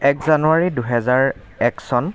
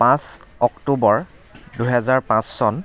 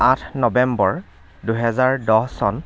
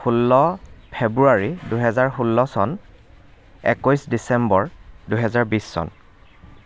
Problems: background conversations at intervals